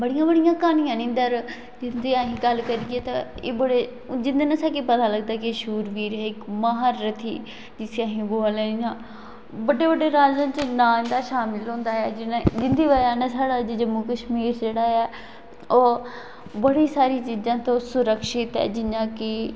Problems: constant background noise, echo